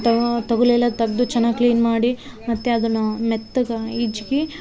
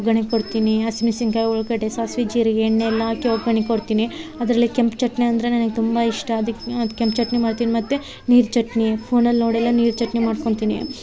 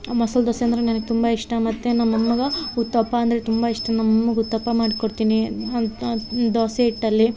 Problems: none marked